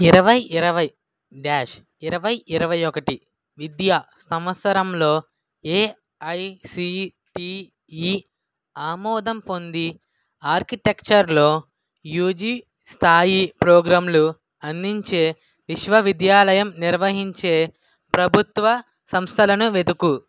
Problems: background sounds at intervals